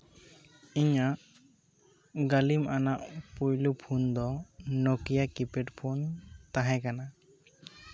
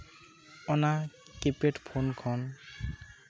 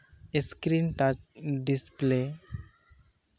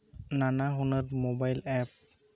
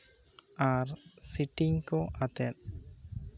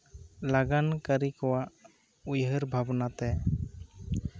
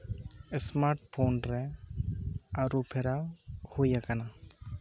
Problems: background conversations at intervals